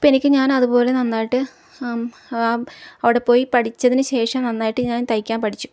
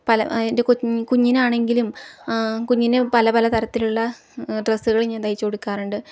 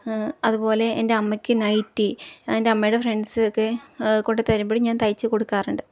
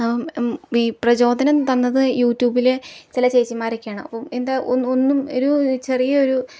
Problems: low volume